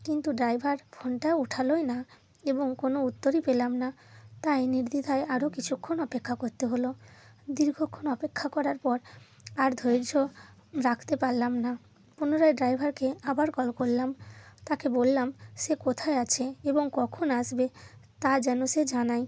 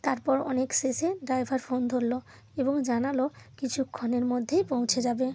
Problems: constant background noise